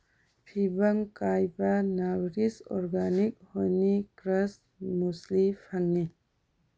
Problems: low volume